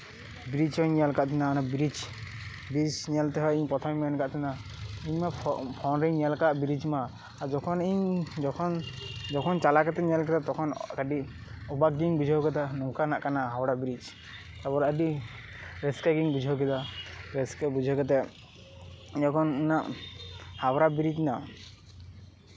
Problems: background sounds at intervals